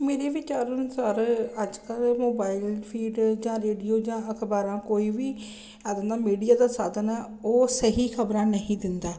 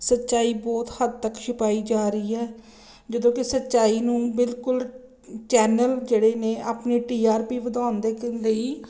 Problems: none marked